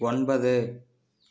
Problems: none marked